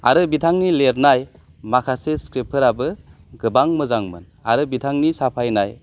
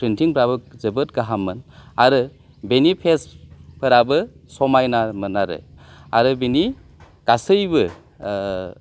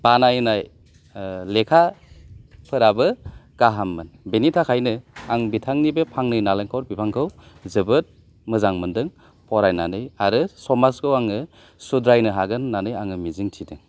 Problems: none marked